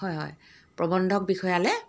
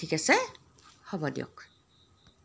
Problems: background sounds at intervals